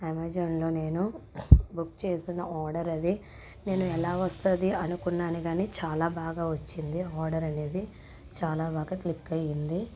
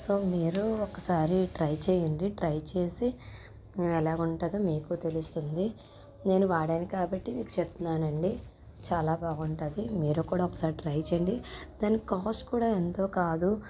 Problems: none marked